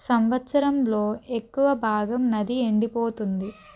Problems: none marked